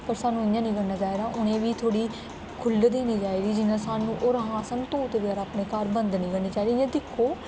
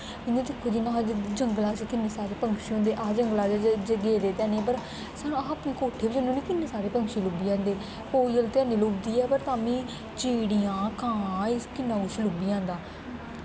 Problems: constant background noise